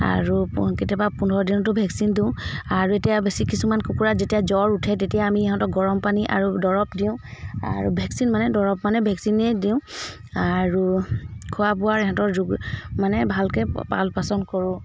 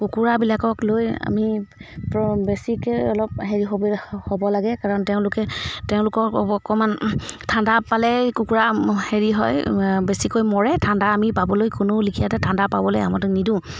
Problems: background sounds at intervals